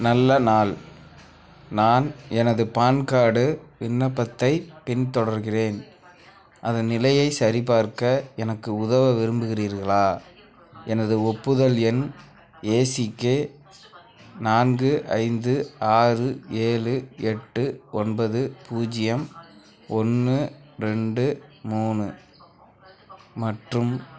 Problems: constant background noise, background conversations at intervals